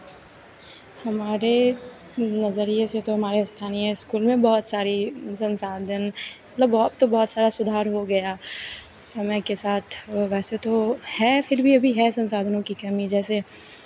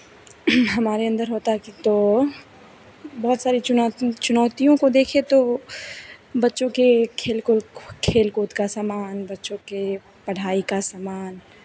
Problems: none marked